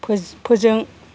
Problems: constant background noise